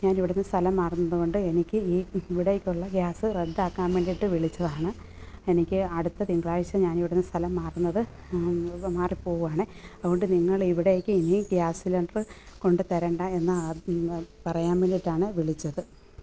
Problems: background sounds at intervals